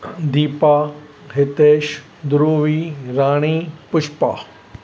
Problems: none marked